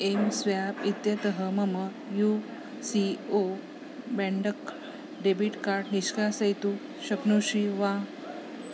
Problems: constant background noise